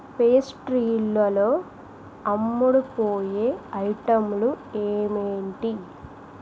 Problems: constant background noise